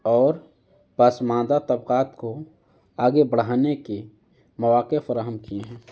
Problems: background sounds at intervals